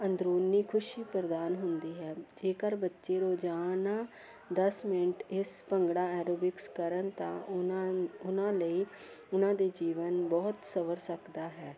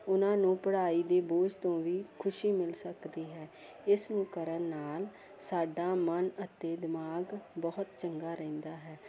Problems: none marked